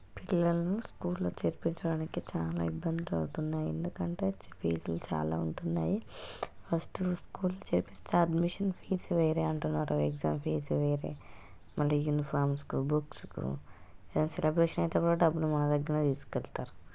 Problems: none marked